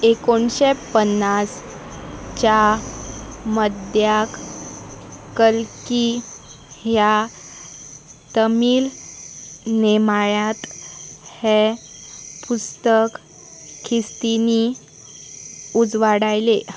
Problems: constant background noise